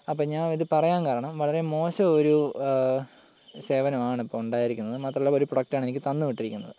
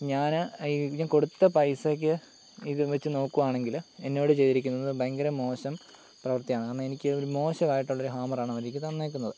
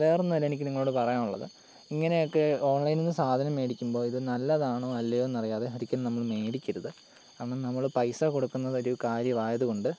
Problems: none marked